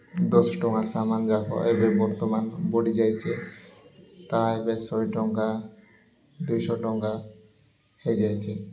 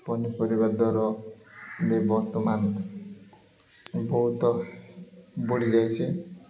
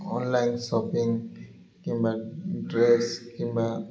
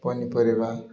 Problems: none marked